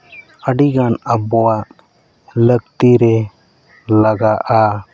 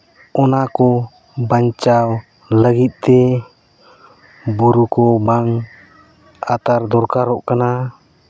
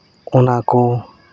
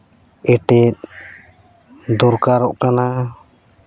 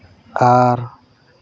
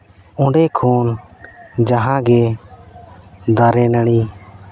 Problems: background sounds at intervals, background conversations at intervals